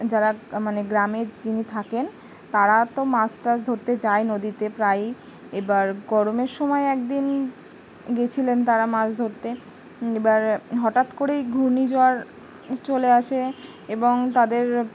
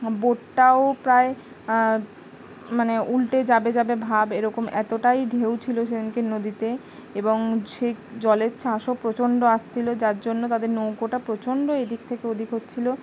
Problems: constant background noise